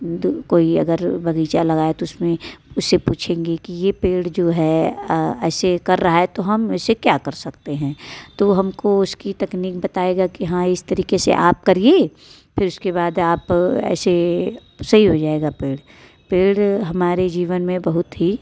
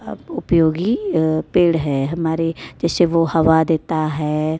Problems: none marked